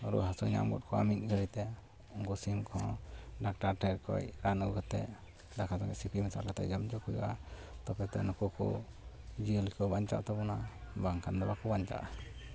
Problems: none marked